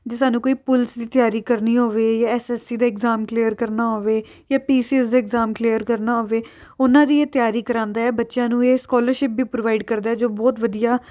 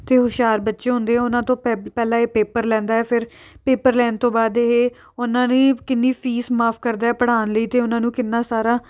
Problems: background sounds at intervals